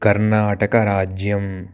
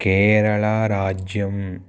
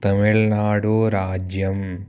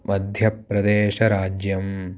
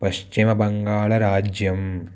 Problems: none marked